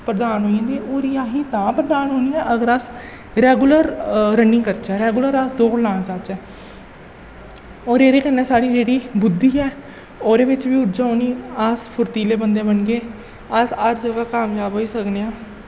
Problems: echo, low volume